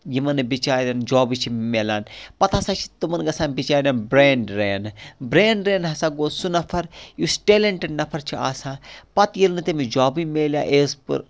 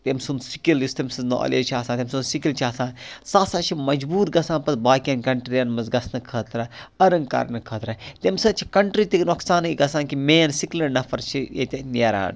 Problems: none marked